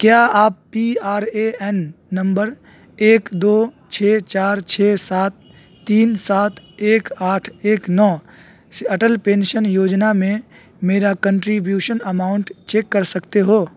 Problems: constant background noise